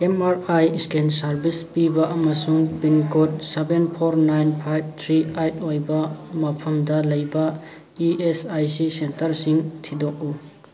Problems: constant background noise, background conversations at intervals